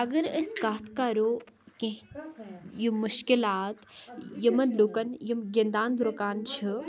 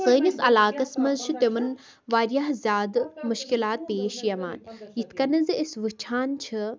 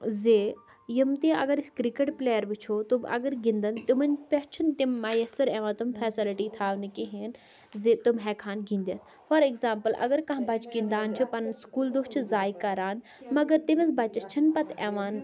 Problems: continuous background conversations